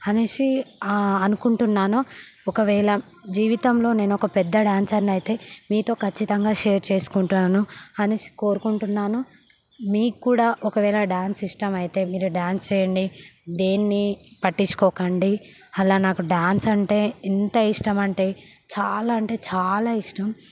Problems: background sounds at intervals